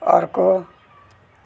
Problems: background sounds at intervals